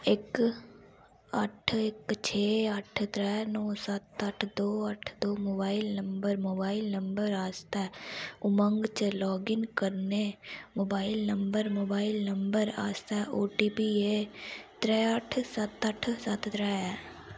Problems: background sounds at intervals